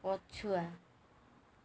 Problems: low volume